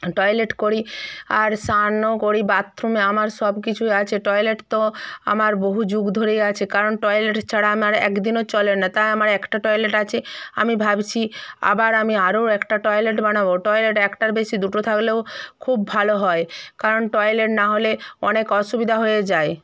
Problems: none marked